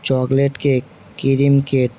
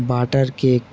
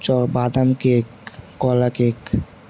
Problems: none marked